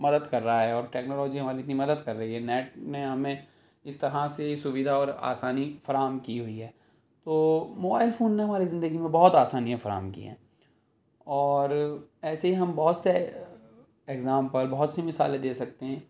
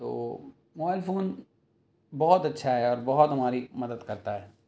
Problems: none marked